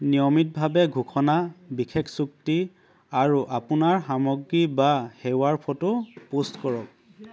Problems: background sounds at intervals